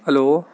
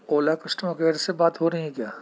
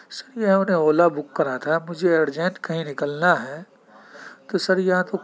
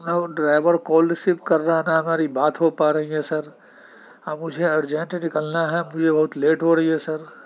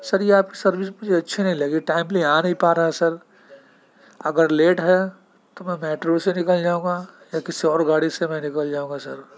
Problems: background sounds at intervals, continuous background conversations